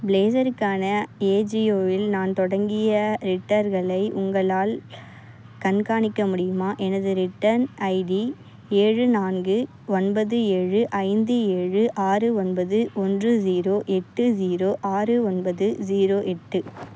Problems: none marked